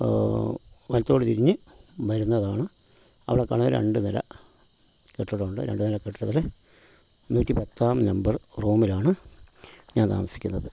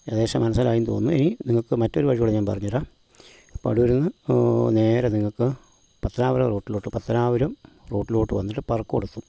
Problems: background sounds at intervals